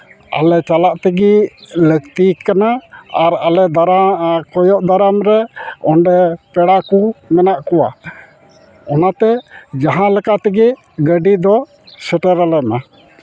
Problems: constant background noise